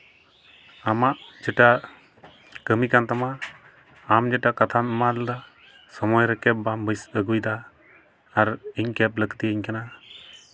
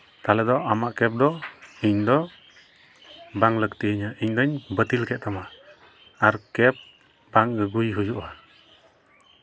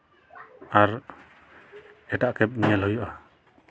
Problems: none marked